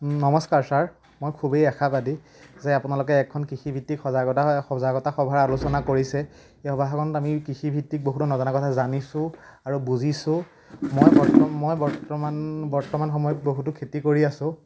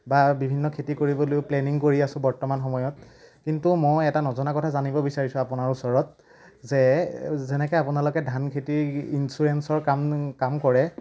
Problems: none marked